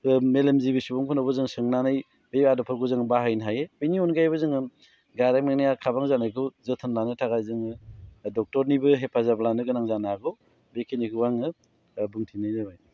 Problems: low volume